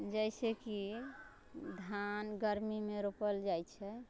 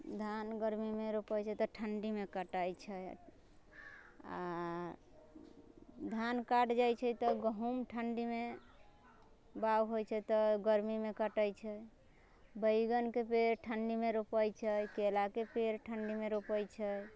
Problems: low volume